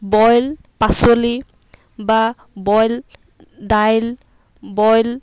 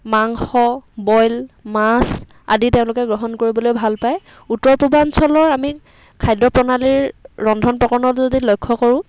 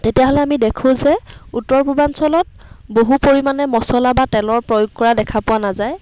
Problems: none marked